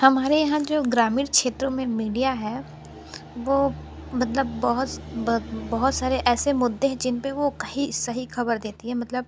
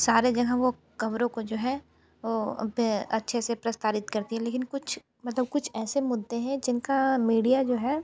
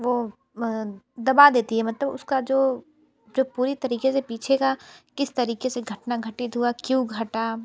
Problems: background sounds at intervals